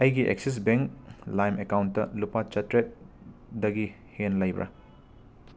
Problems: background sounds at intervals